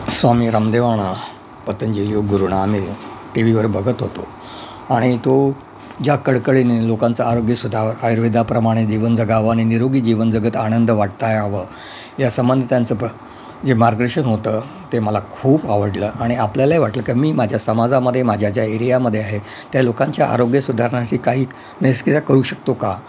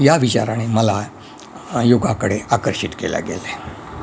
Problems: constant background noise